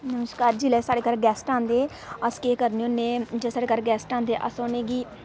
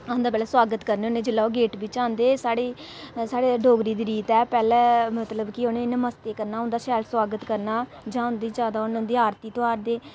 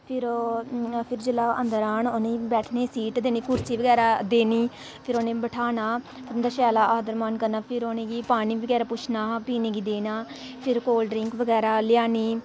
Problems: constant background noise